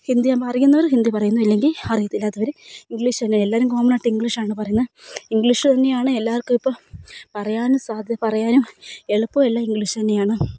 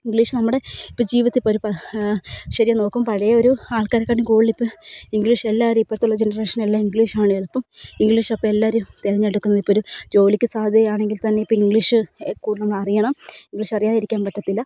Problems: none marked